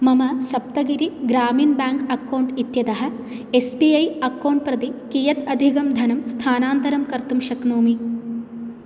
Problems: none marked